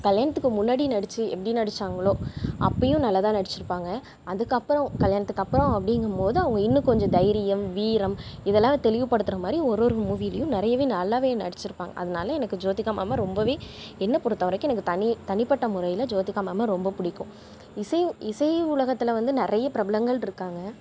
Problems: background sounds at intervals